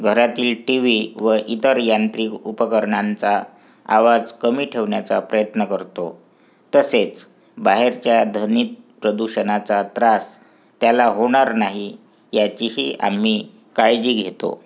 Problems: background sounds at intervals, background conversations at intervals